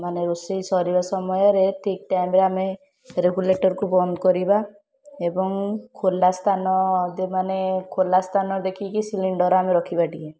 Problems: constant background noise, continuous background conversations